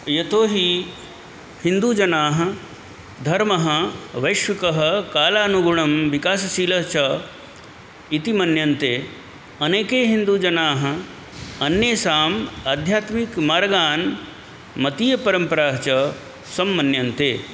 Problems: constant background noise